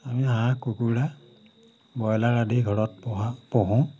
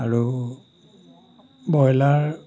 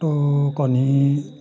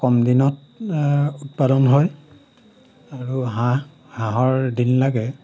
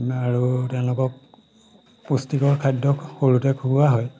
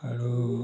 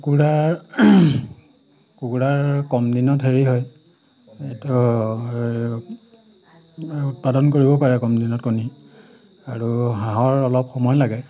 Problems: background sounds at intervals